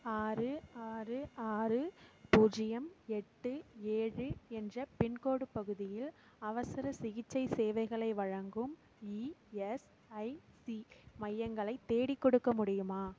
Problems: background sounds at intervals, low volume